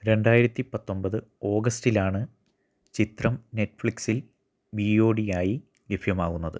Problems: none marked